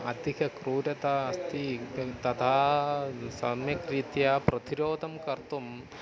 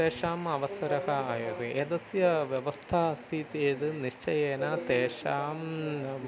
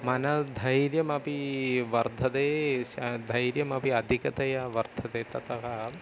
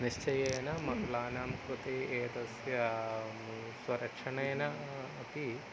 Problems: constant background noise, continuous background conversations